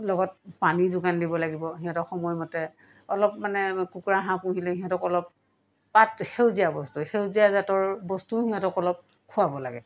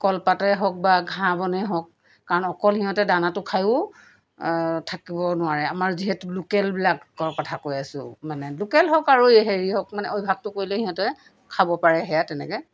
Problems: background conversations at intervals